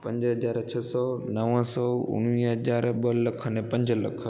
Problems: constant background noise, echo